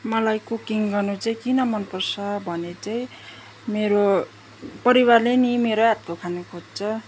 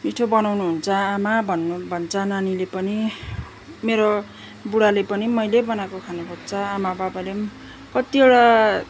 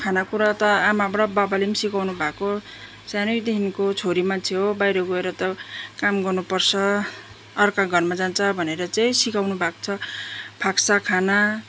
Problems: background sounds at intervals